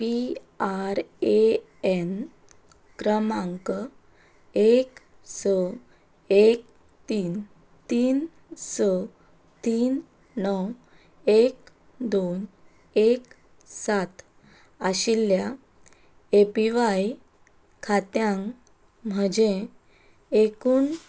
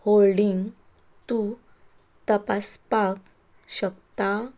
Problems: background sounds at intervals